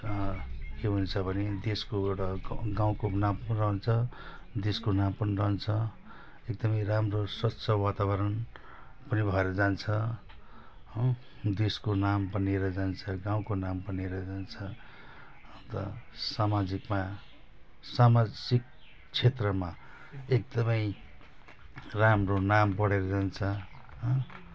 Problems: none marked